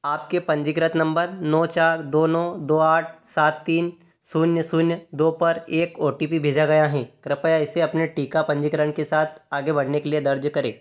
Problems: none marked